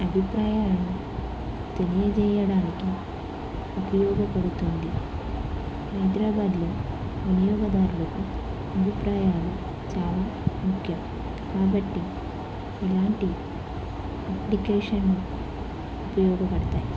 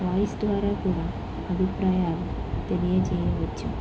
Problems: constant background noise